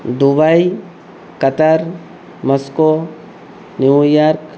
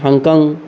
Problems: constant background noise, background conversations at intervals